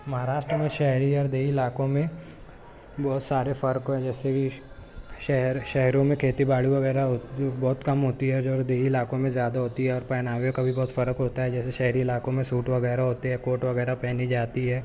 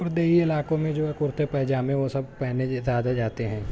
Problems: background sounds at intervals